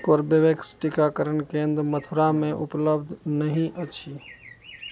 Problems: none marked